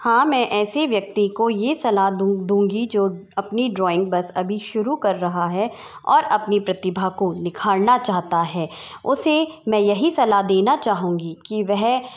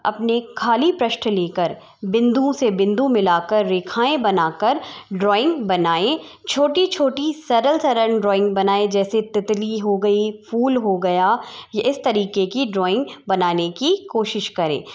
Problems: none marked